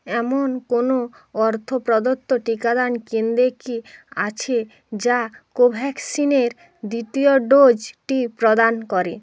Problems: constant background noise